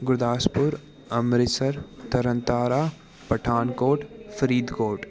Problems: continuous background conversations